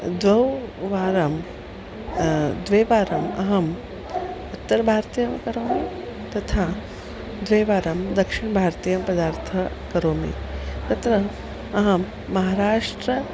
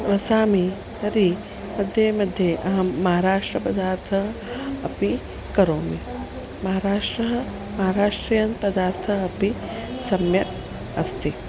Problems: none marked